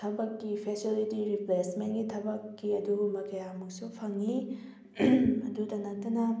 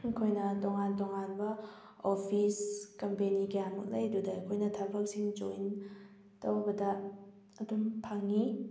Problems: none marked